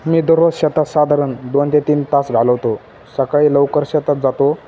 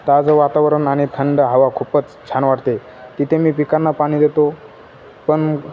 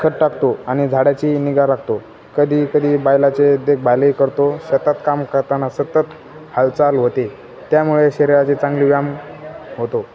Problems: none marked